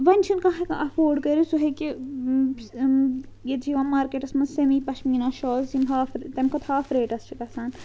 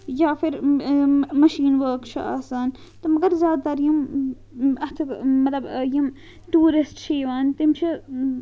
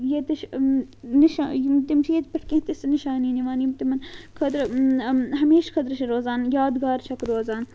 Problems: constant background noise